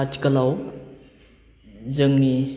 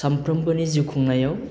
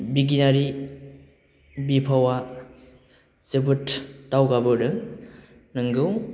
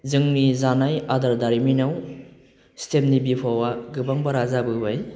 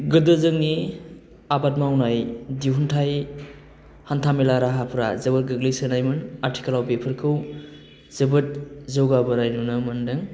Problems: constant background noise